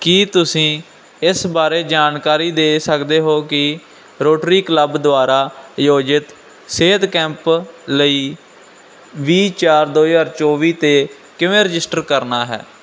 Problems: background conversations at intervals